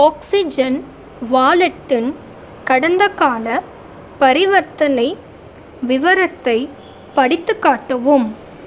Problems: constant background noise